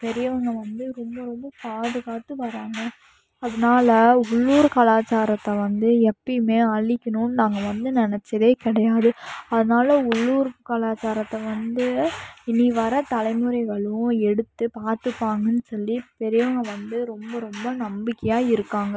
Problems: background sounds at intervals